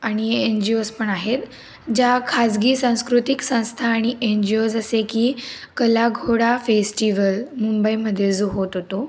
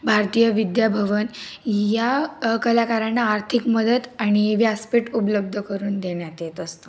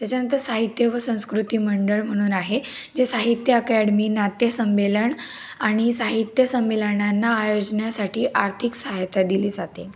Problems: background sounds at intervals